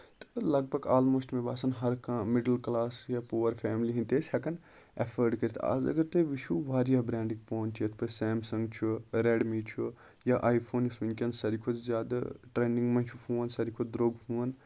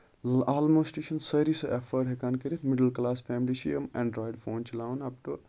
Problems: constant background noise